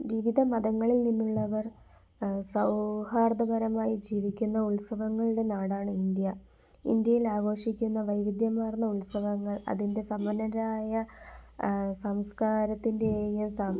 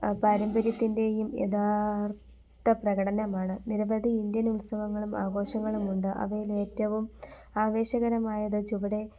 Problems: background sounds at intervals